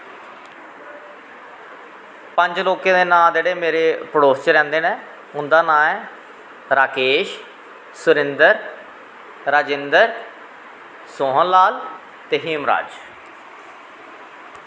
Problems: constant background noise, echo